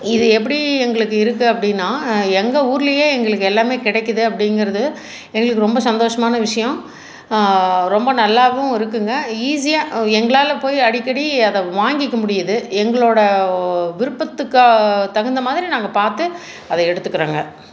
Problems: constant background noise